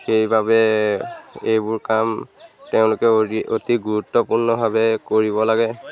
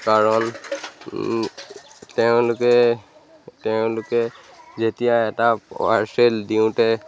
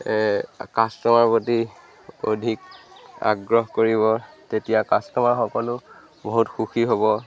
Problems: constant background noise